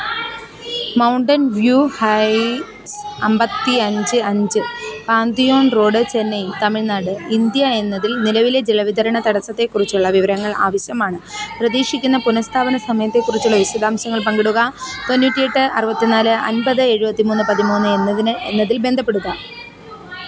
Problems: continuous background conversations